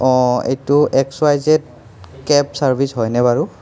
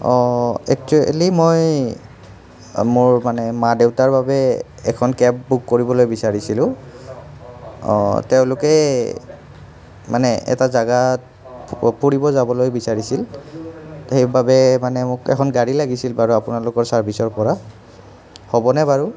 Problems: continuous background conversations